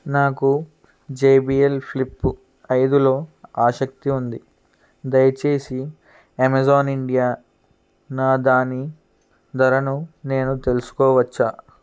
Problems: none marked